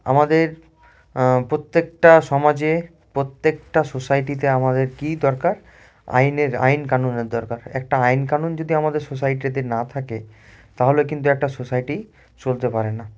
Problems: constant background noise